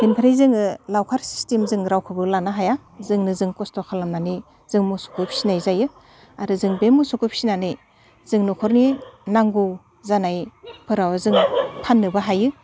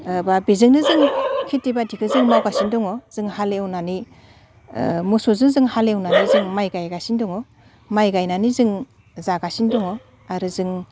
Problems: constant background noise